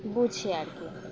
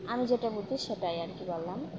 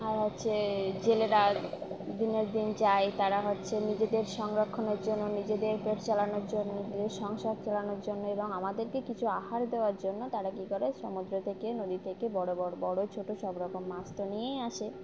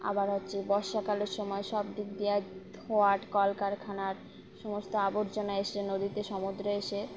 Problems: constant background noise